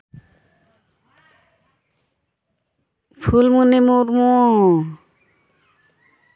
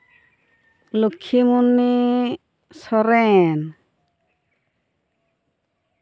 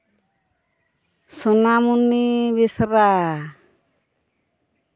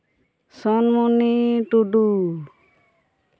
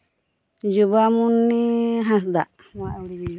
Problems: none marked